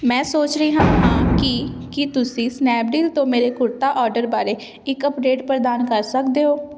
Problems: constant background noise